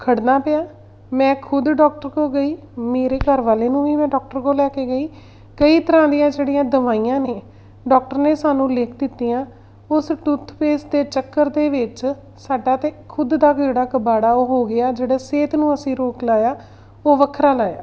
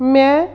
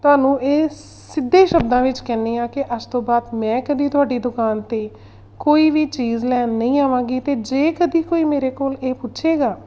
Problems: background sounds at intervals